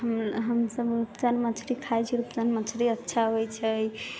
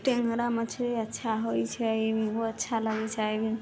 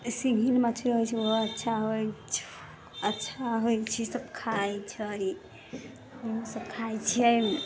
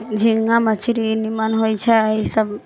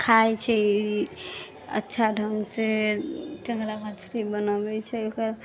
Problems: low volume